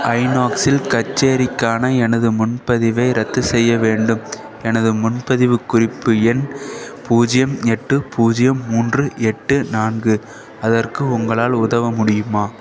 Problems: constant background noise